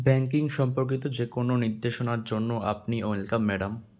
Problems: constant background noise